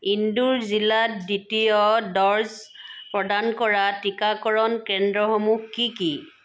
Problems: background sounds at intervals